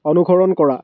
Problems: background sounds at intervals